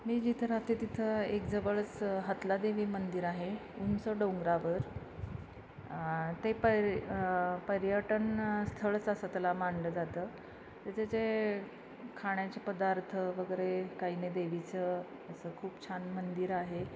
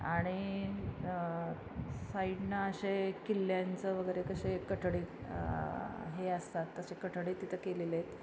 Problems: constant background noise